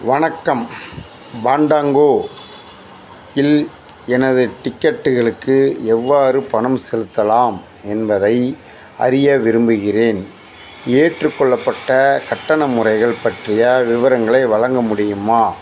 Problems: constant background noise